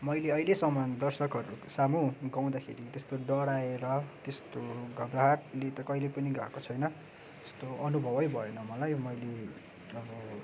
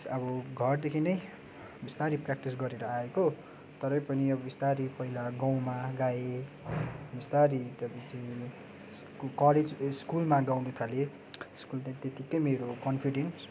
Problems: none marked